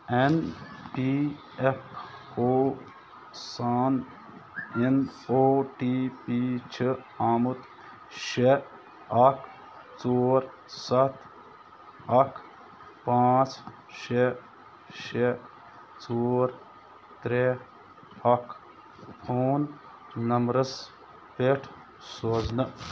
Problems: constant background noise